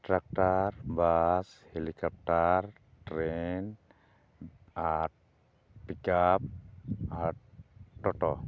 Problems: none marked